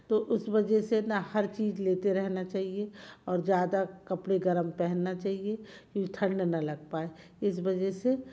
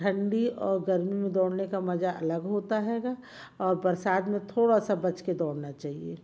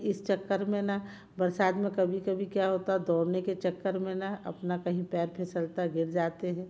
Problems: background sounds at intervals